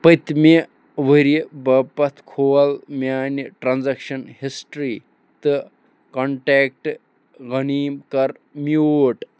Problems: none marked